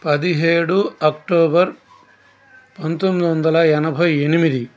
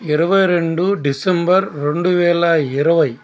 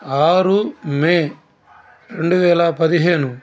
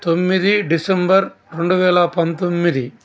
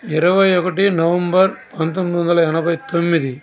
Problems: constant background noise, background conversations at intervals